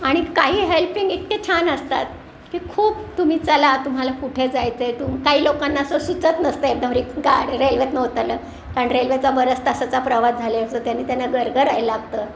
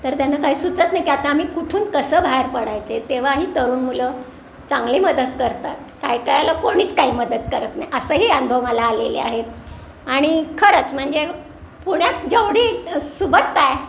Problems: none marked